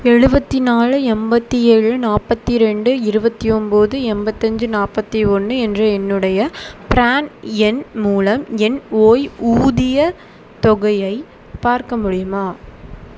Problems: constant background noise